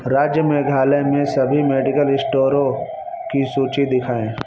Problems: constant background noise